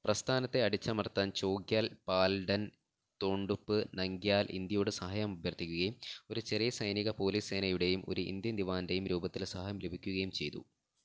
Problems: low volume